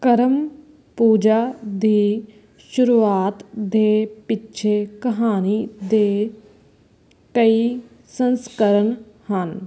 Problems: constant background noise